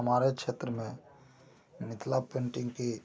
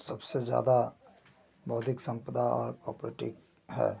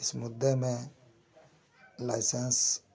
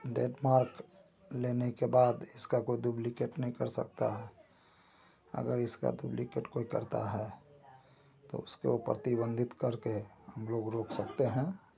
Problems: constant background noise